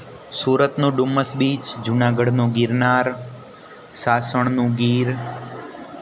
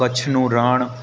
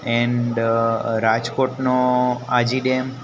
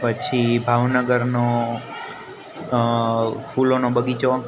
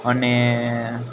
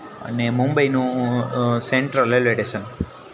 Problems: none marked